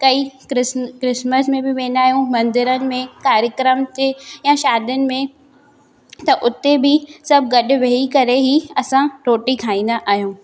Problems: background sounds at intervals, echo